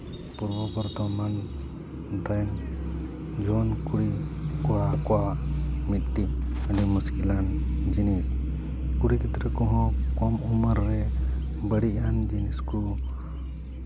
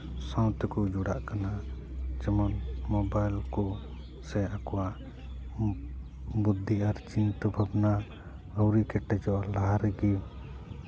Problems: none marked